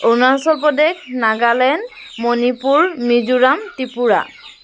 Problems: constant background noise